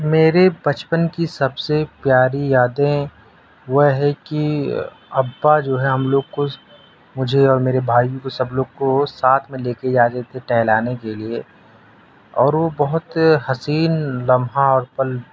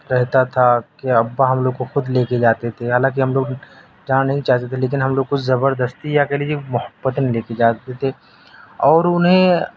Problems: none marked